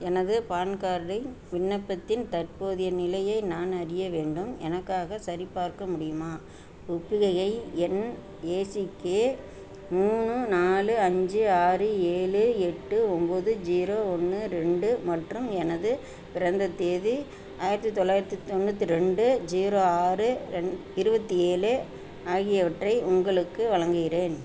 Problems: none marked